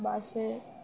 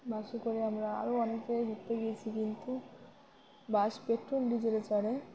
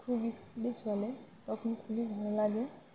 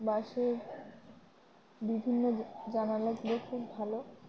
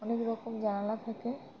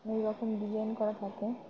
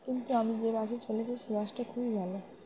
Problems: constant background noise, continuous background conversations